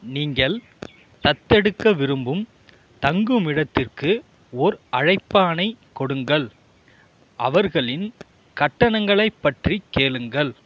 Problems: constant background noise